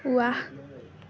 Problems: constant background noise, background conversations at intervals